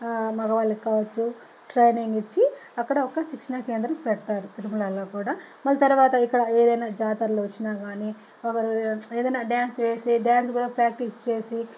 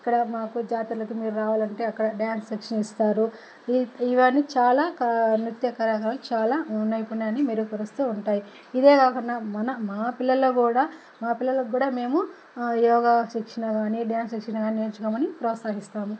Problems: constant background noise